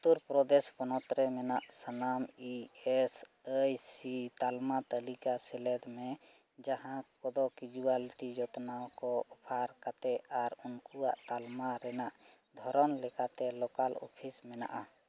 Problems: background sounds at intervals